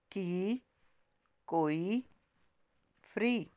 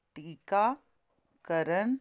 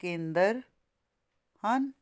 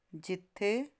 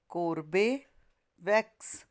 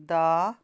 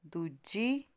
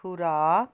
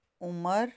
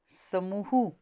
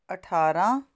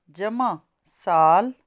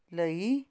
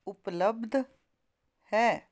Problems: constant background noise